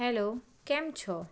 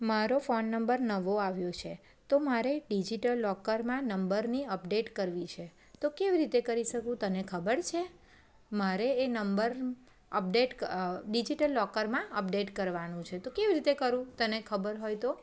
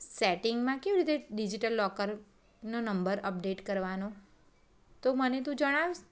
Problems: none marked